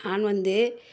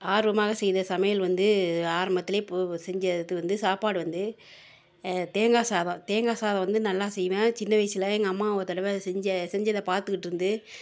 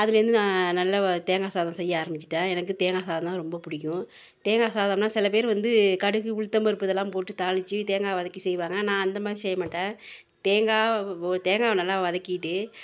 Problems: continuous background conversations